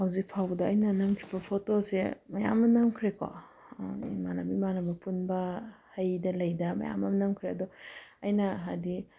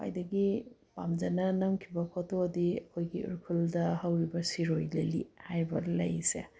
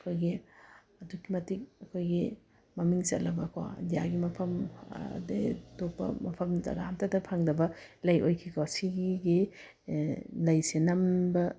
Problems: none marked